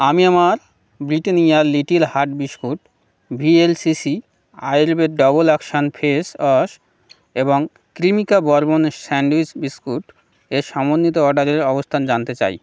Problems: none marked